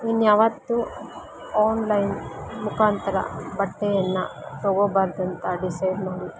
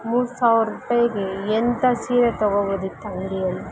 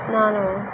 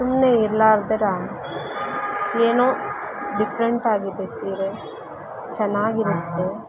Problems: constant background noise